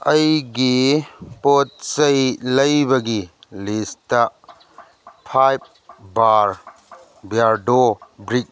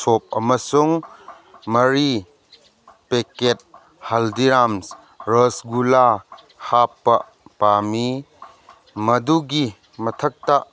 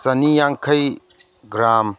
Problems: background conversations at intervals